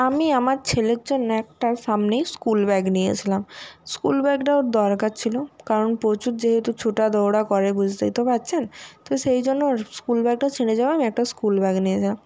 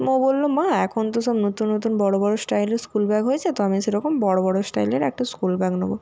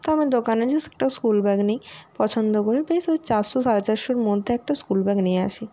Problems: background sounds at intervals